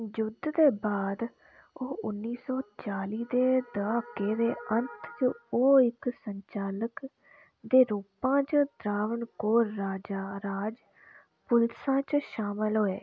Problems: none marked